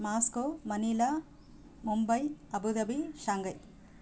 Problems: constant background noise